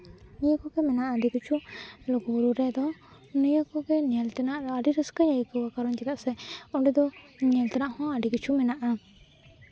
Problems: background sounds at intervals